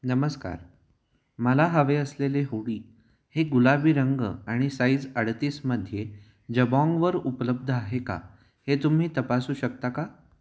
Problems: background sounds at intervals, echo